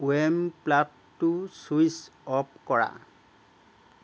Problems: none marked